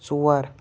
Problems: none marked